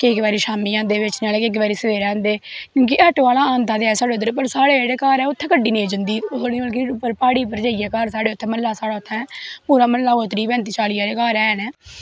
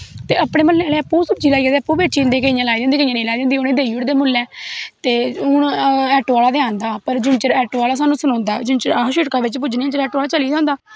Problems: background sounds at intervals